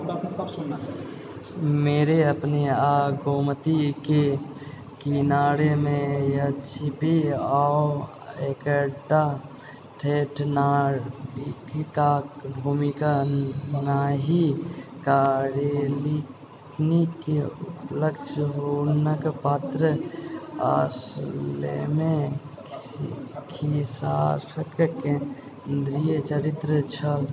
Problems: background sounds at intervals, echo